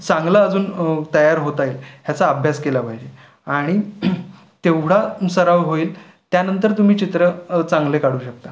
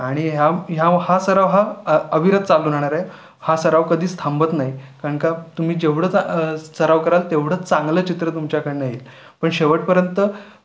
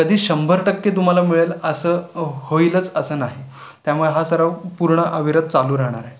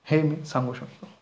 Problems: constant background noise, background conversations at intervals